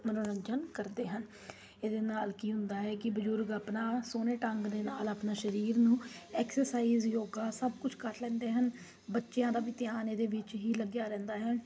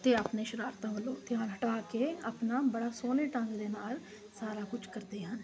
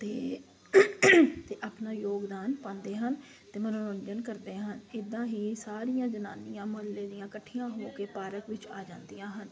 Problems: constant background noise